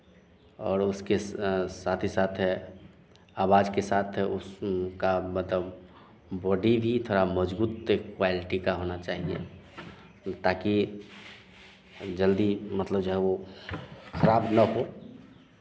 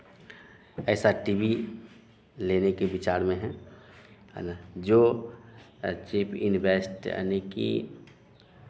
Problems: none marked